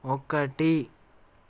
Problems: none marked